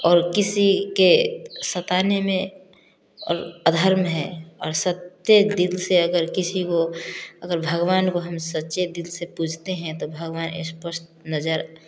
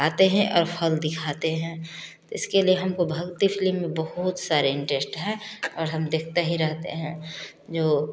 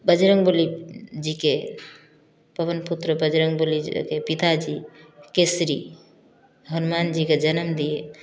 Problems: none marked